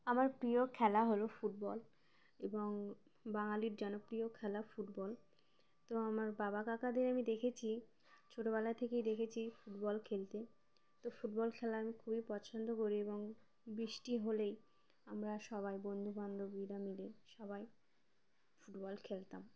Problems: none marked